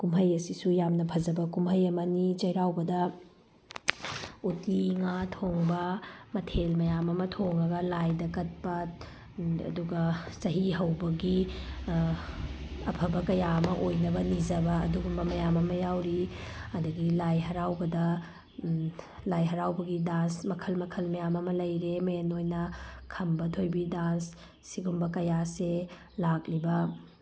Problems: background sounds at intervals